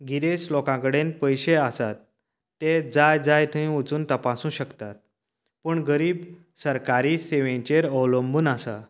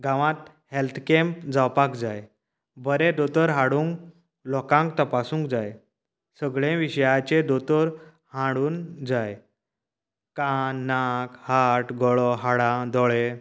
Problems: none marked